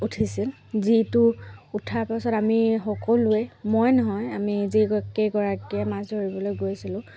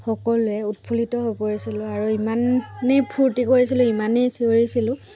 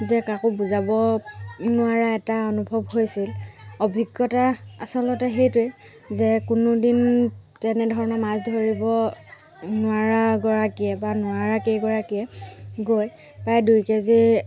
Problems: background sounds at intervals